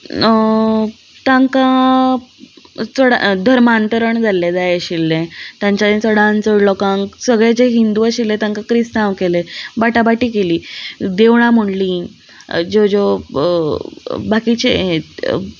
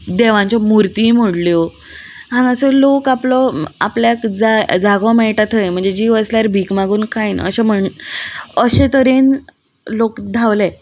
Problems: none marked